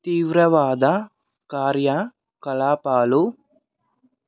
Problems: none marked